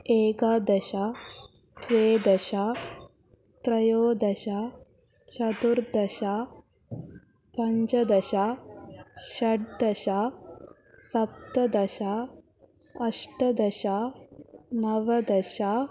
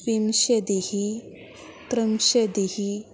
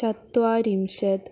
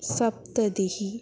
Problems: constant background noise